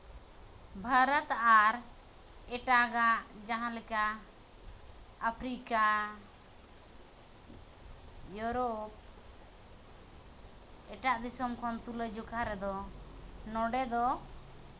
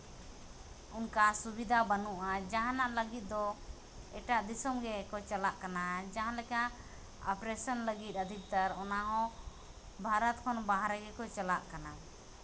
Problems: background sounds at intervals